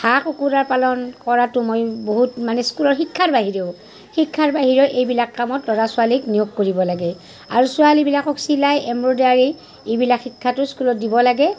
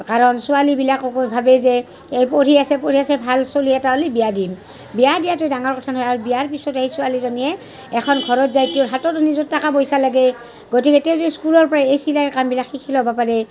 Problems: background sounds at intervals, background conversations at intervals